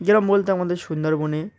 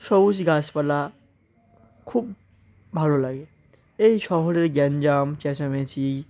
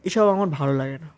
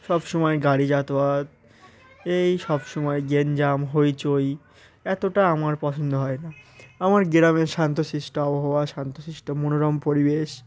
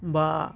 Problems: constant background noise, continuous background conversations